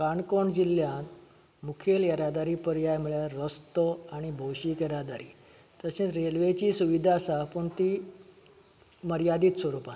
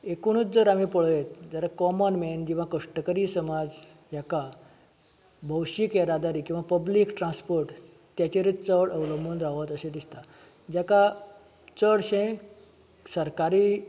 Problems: none marked